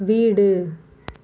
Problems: none marked